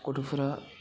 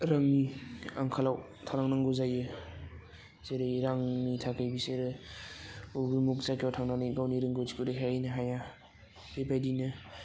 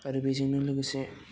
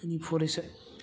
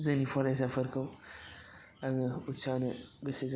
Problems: constant background noise